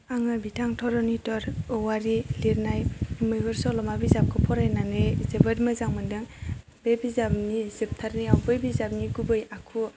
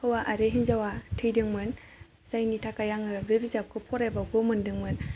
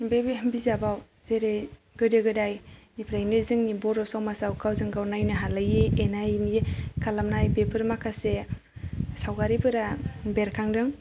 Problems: none marked